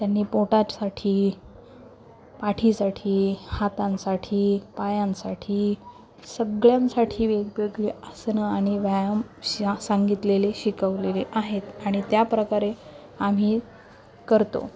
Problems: constant background noise, continuous background conversations, low volume